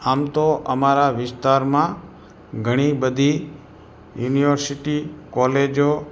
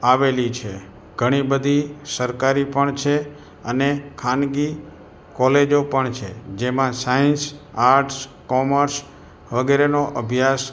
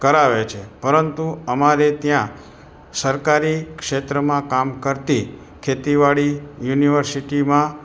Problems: background sounds at intervals